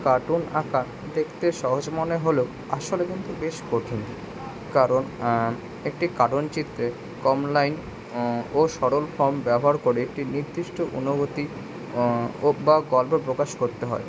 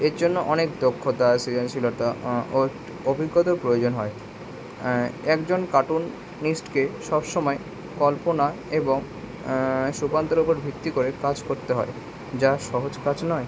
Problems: constant background noise, background conversations at intervals